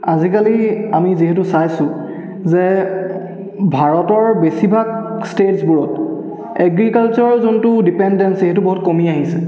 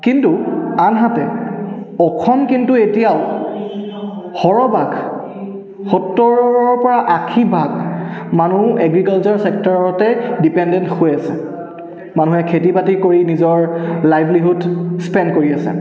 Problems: continuous background conversations, echo